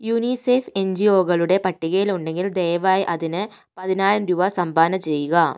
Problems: none marked